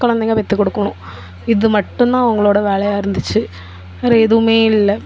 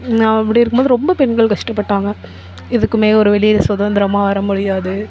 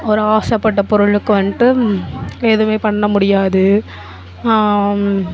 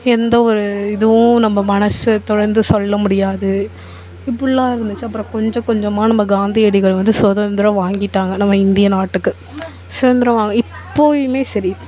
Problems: background conversations at intervals